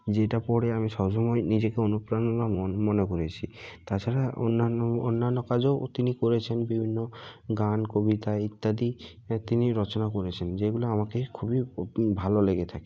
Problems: constant background noise